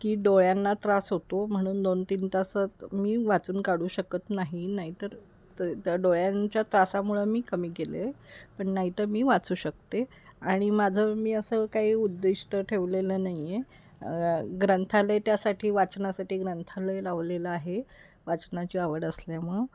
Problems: background sounds at intervals